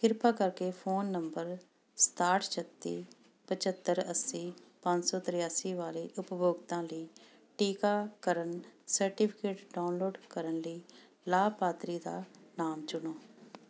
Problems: constant background noise